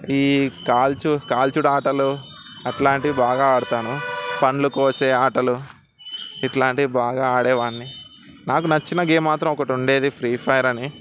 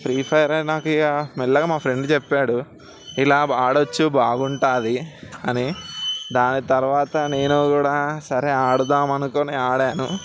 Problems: constant background noise